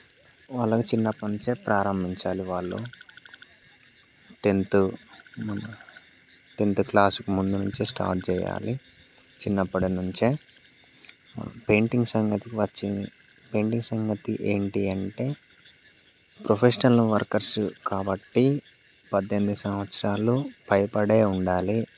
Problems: none marked